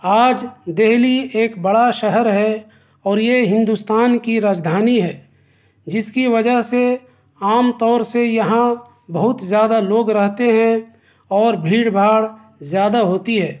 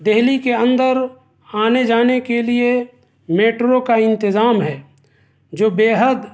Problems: none marked